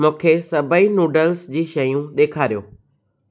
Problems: none marked